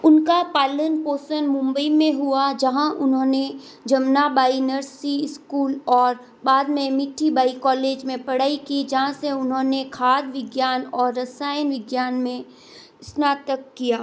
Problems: constant background noise